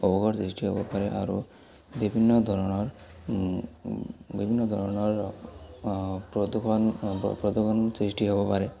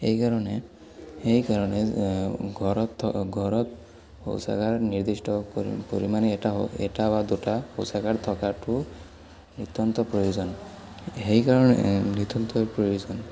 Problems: none marked